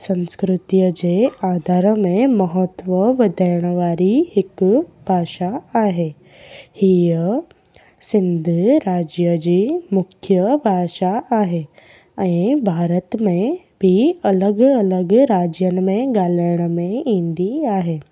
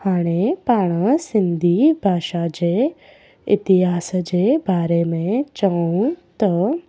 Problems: background sounds at intervals